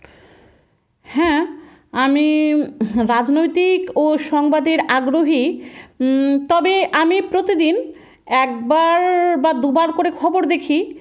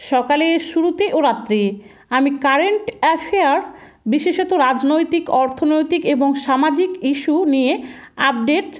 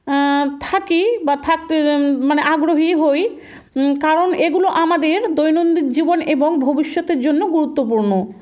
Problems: background sounds at intervals